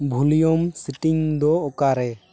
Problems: background sounds at intervals